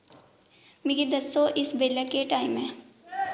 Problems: background sounds at intervals